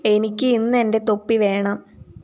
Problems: none marked